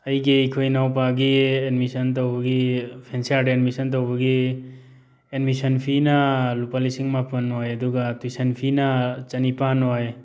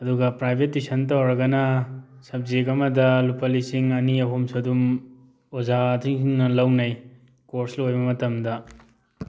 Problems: background sounds at intervals